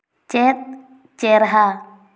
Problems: echo